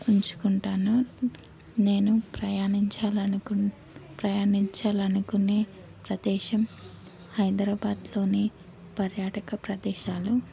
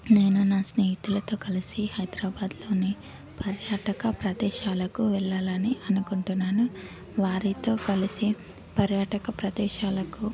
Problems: constant background noise, background conversations at intervals